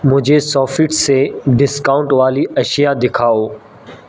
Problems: constant background noise